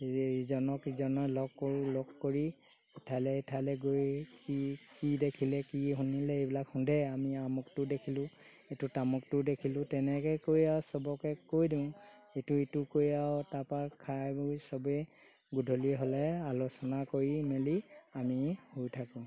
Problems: constant background noise